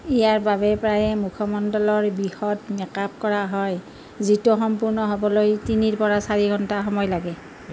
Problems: constant background noise